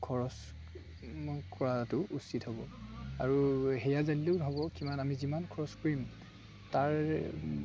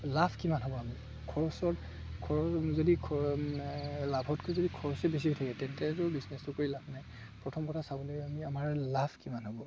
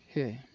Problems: constant background noise, background conversations at intervals